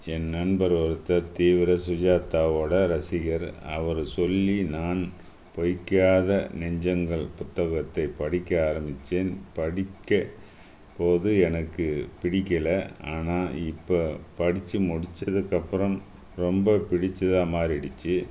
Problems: background sounds at intervals